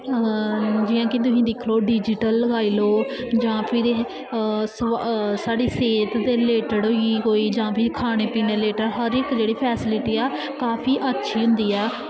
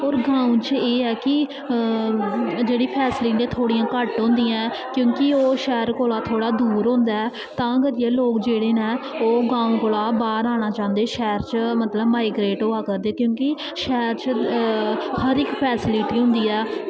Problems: constant background noise, echo